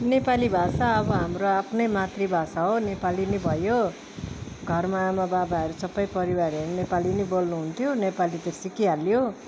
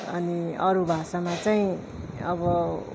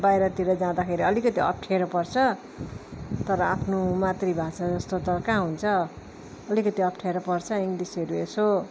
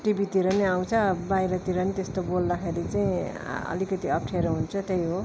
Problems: constant background noise